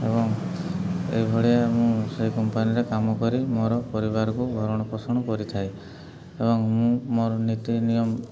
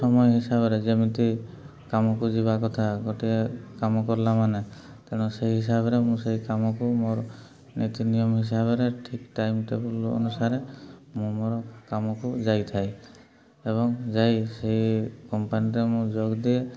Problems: background sounds at intervals, continuous background conversations, low volume